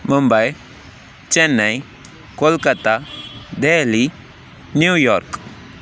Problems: background sounds at intervals